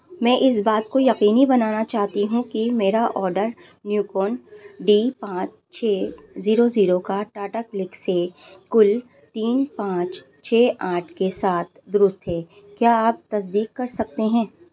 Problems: constant background noise